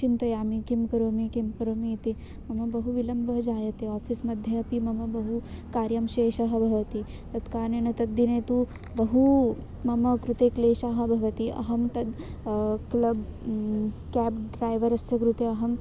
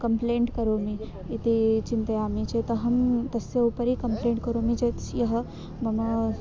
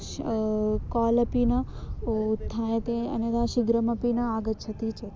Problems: constant background noise